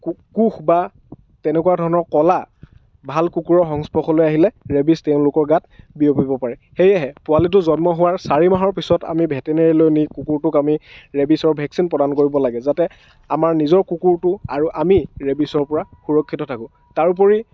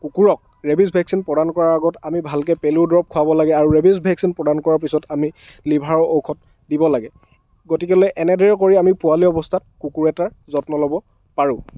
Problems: none marked